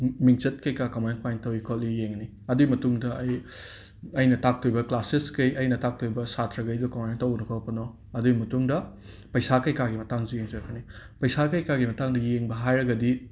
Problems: none marked